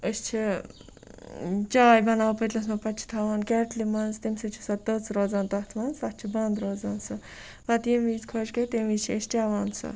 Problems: background sounds at intervals, background conversations at intervals